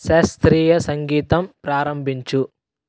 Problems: none marked